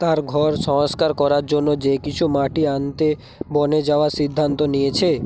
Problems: continuous background conversations